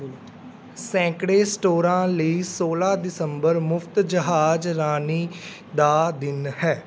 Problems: background sounds at intervals